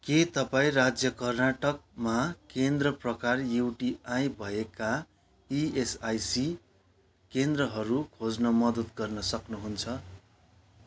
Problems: none marked